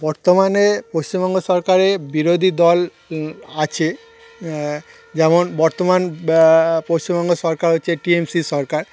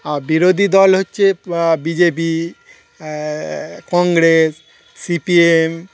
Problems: none marked